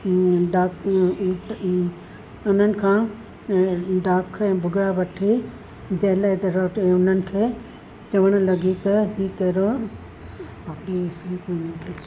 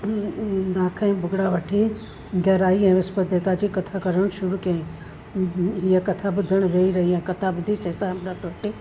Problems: constant background noise, low volume